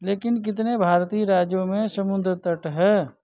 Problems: background sounds at intervals